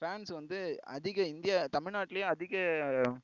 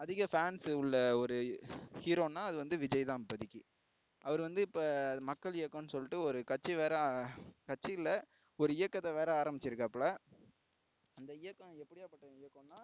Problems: low volume